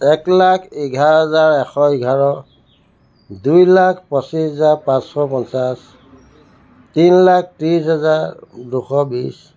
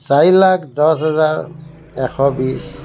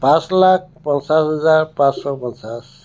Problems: constant background noise